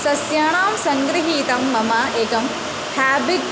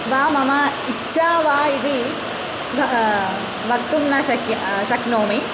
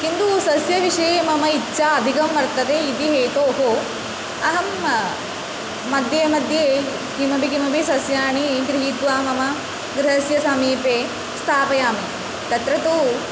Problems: constant background noise, continuous background conversations